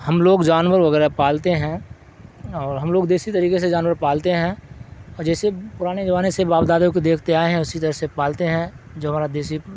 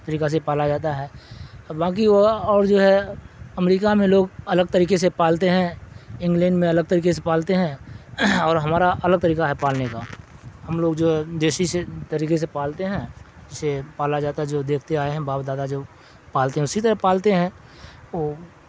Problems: constant background noise